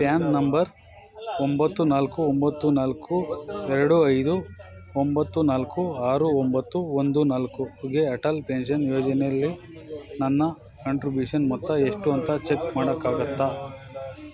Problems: continuous background conversations